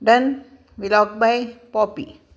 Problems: none marked